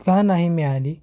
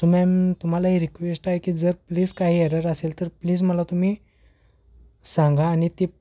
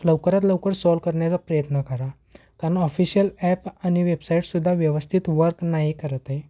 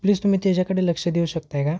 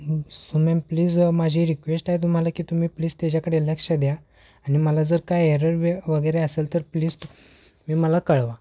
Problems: none marked